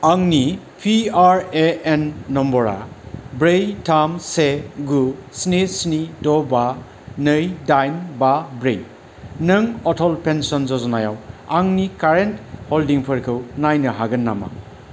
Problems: none marked